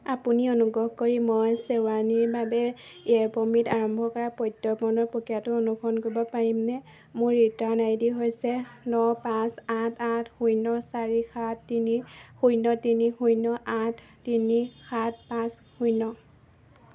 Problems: background sounds at intervals